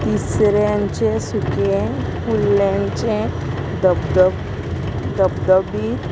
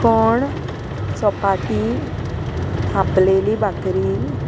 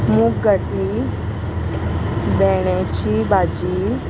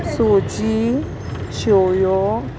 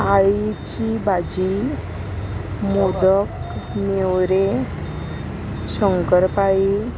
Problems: constant background noise